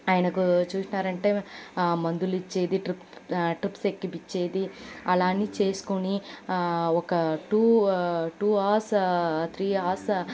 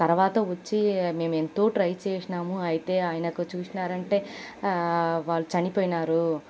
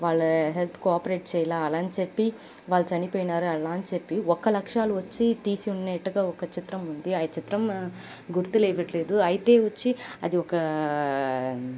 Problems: none marked